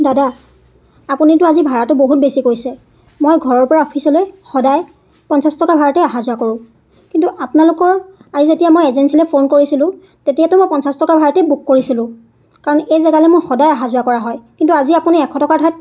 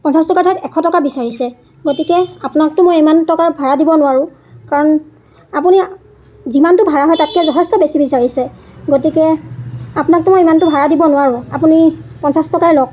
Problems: none marked